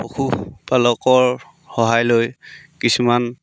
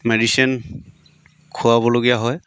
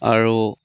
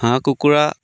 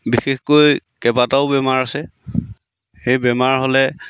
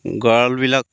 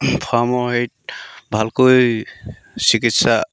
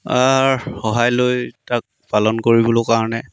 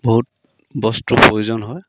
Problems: none marked